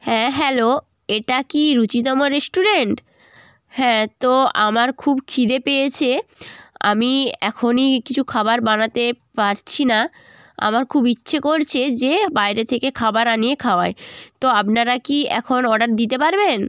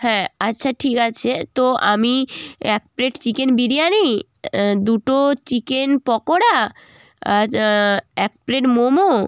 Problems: constant background noise